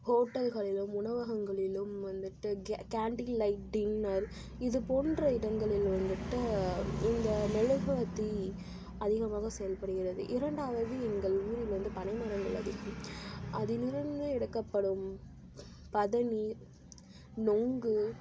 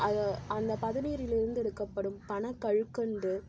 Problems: constant background noise, low volume